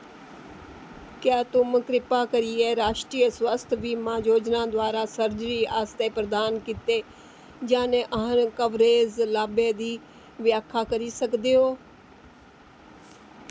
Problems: constant background noise